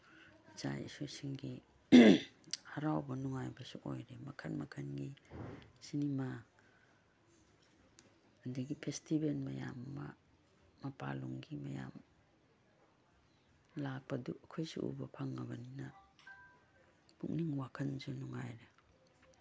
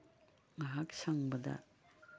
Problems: background sounds at intervals, background conversations at intervals